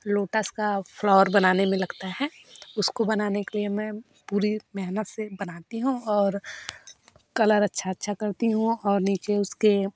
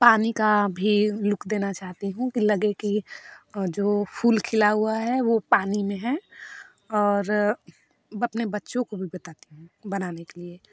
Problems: none marked